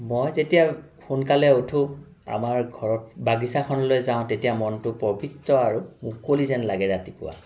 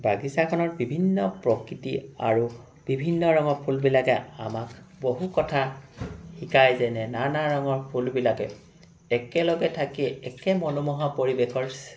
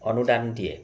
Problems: background sounds at intervals